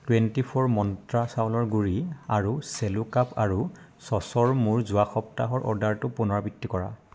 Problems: constant background noise